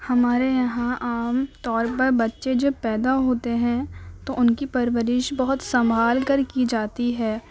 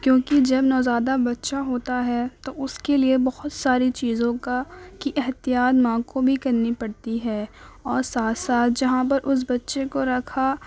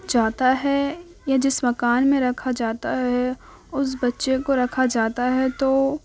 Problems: background sounds at intervals